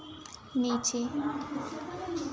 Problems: none marked